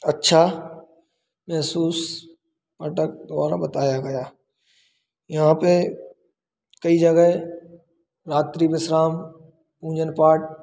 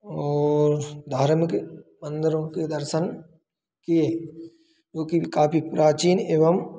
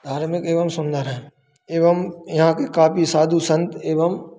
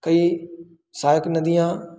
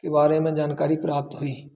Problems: constant background noise